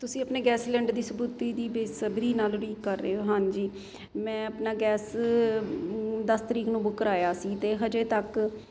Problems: constant background noise